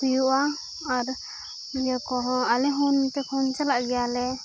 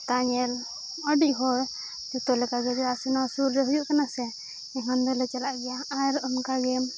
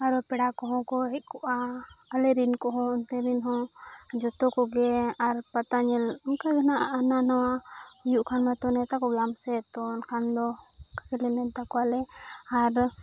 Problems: constant background noise